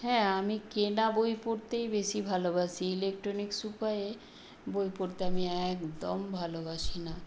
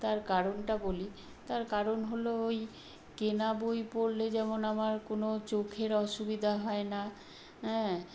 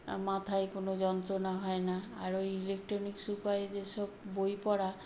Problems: constant background noise